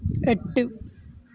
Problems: constant background noise